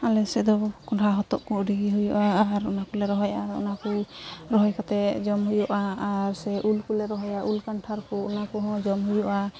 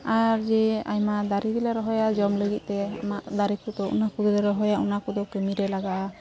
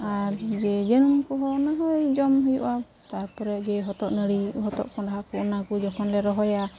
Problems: constant background noise, background conversations at intervals